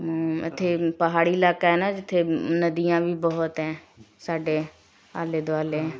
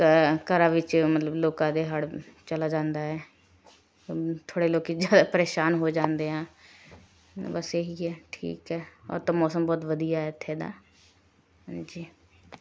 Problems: background sounds at intervals, continuous background conversations